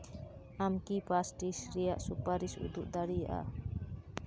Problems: none marked